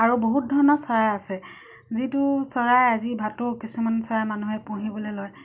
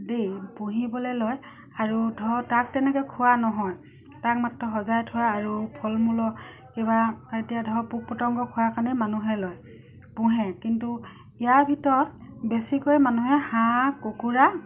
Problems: constant background noise